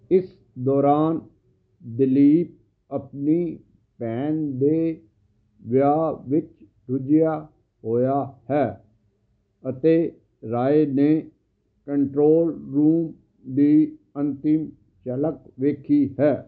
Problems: background conversations at intervals